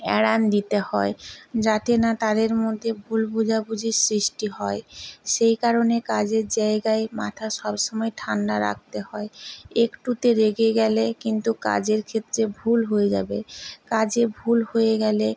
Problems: background conversations at intervals